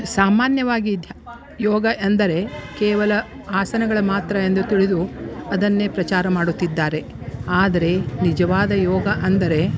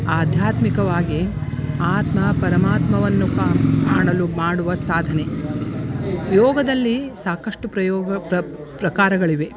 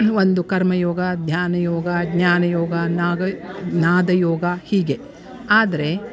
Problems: background sounds at intervals